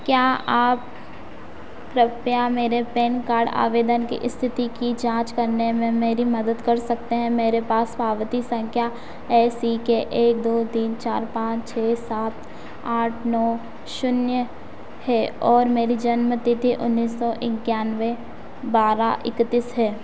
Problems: constant background noise